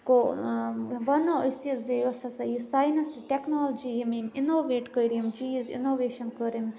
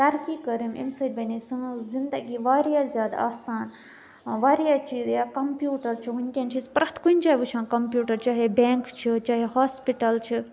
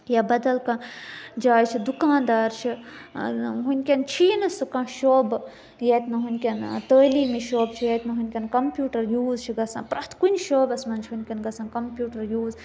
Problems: none marked